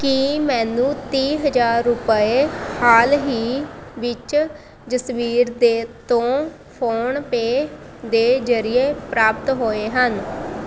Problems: constant background noise